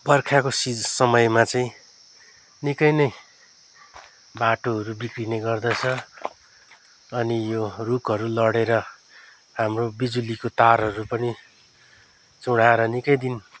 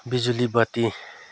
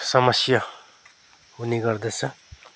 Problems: none marked